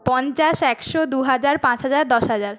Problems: background conversations at intervals